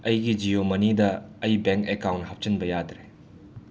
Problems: none marked